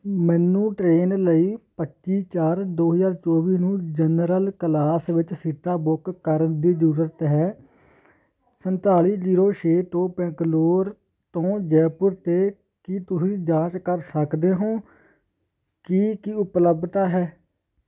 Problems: constant background noise